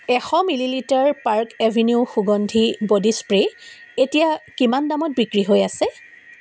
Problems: constant background noise